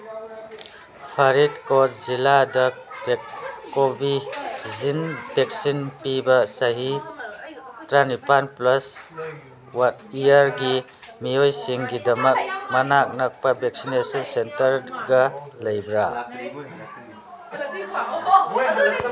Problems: constant background noise, background conversations at intervals